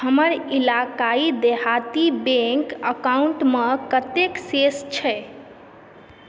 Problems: background sounds at intervals